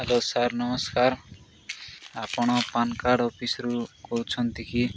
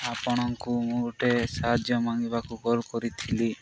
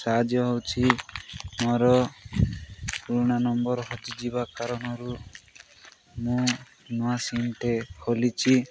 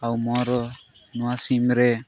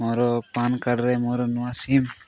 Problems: constant background noise, background conversations at intervals